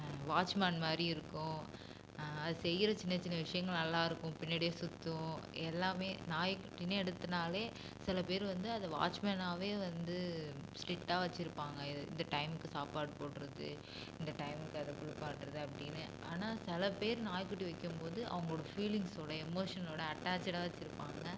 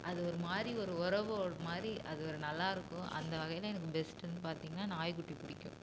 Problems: constant background noise